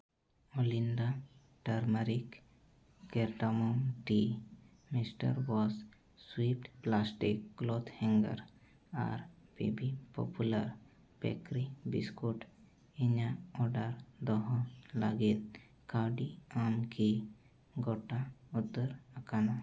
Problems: low volume